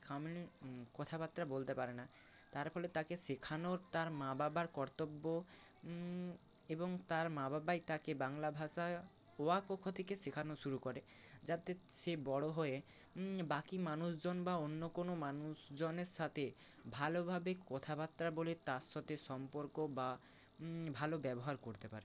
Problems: constant background noise